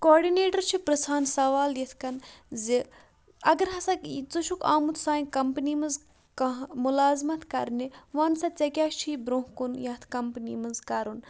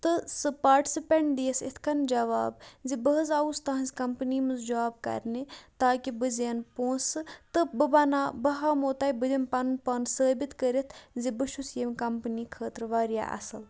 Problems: constant background noise